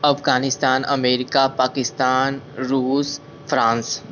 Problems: constant background noise